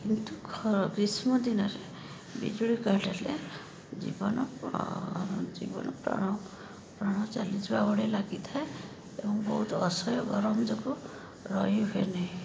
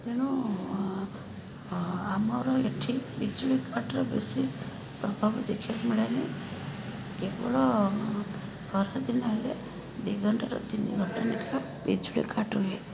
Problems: constant background noise, background conversations at intervals